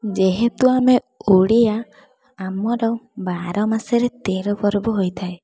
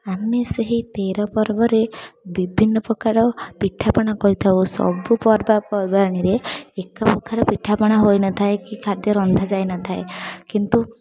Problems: constant background noise, continuous background conversations